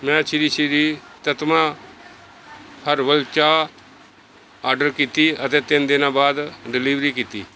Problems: none marked